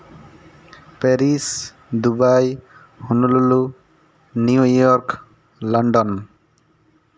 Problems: constant background noise